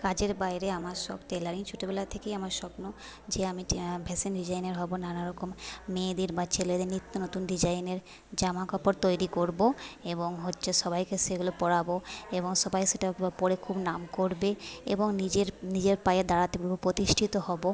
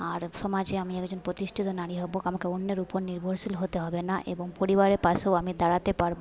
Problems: background conversations at intervals, low volume